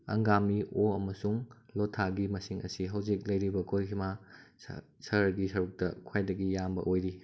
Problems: background sounds at intervals